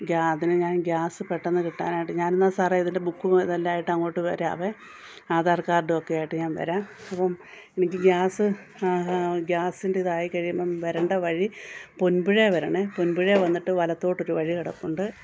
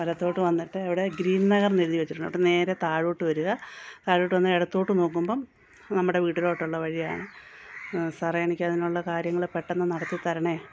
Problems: background sounds at intervals